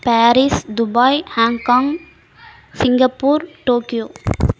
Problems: background sounds at intervals